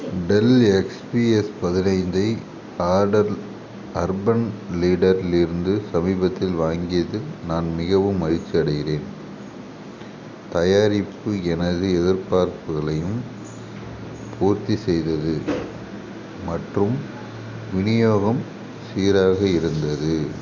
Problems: background sounds at intervals